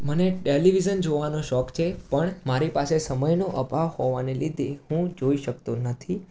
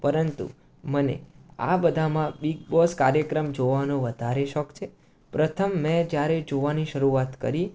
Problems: constant background noise